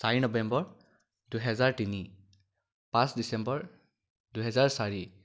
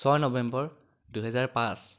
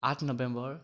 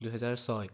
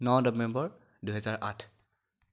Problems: none marked